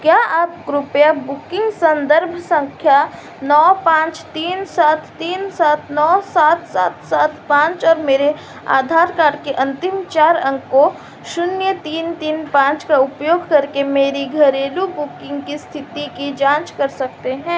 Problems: constant background noise